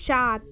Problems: none marked